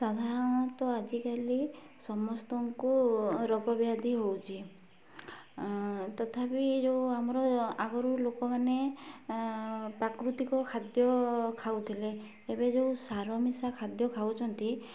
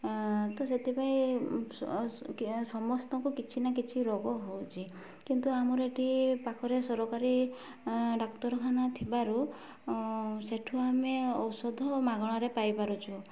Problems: low volume